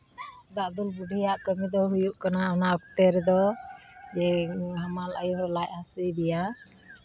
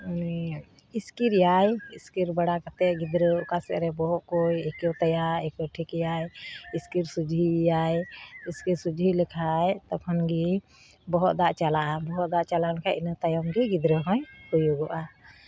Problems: constant background noise, background conversations at intervals